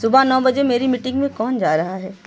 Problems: background sounds at intervals